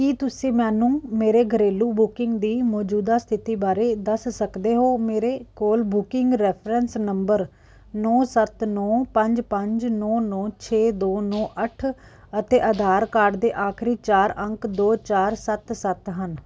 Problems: none marked